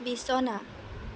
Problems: constant background noise